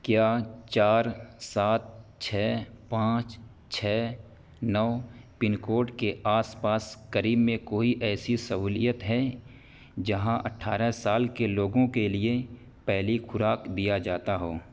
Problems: constant background noise